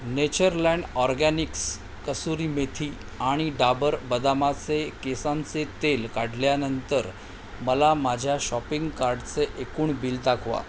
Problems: constant background noise